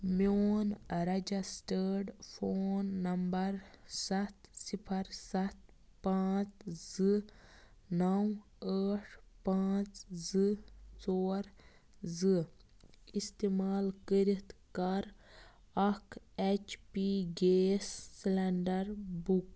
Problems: background sounds at intervals, low volume